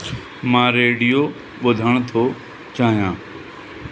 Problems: constant background noise